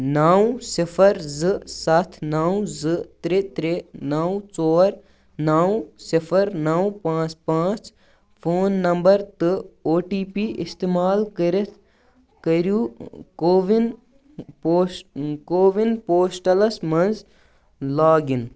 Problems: background sounds at intervals